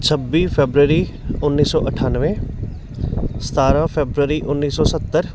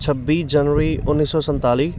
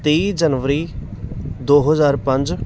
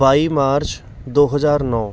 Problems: constant background noise